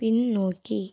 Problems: none marked